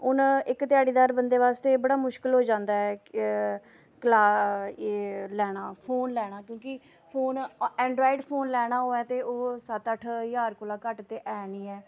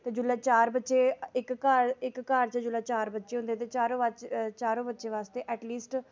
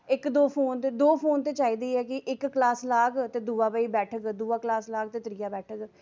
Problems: none marked